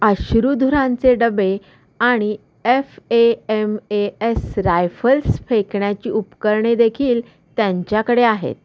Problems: constant background noise, echo